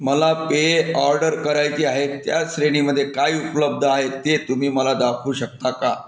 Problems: none marked